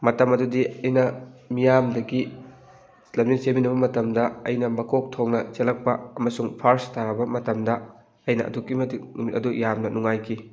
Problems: background sounds at intervals